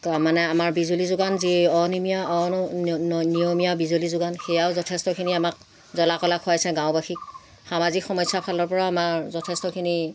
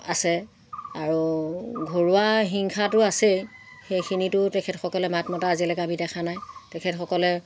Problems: background sounds at intervals